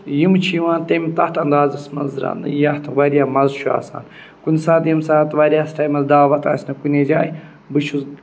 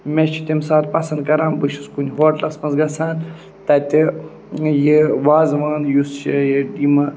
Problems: none marked